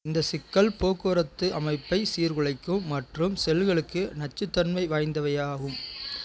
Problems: background conversations at intervals